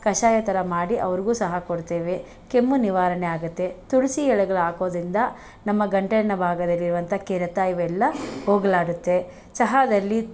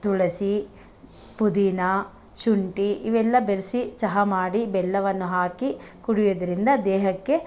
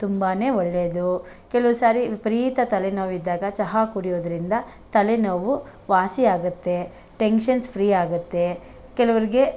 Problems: none marked